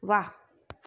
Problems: none marked